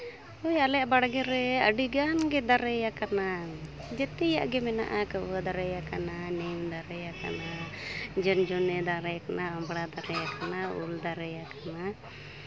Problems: constant background noise